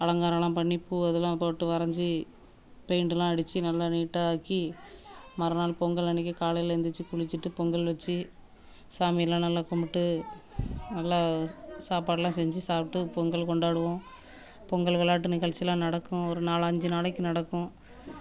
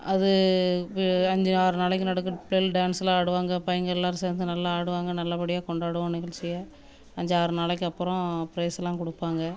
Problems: background sounds at intervals, background conversations at intervals